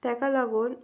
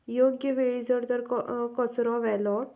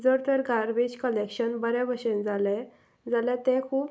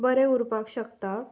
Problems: none marked